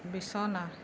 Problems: constant background noise